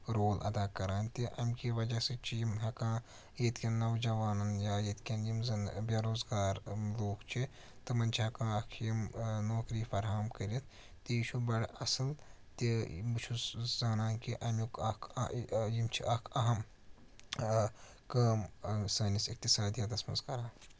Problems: none marked